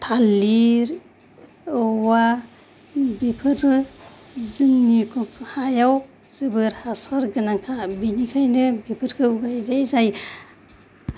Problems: none marked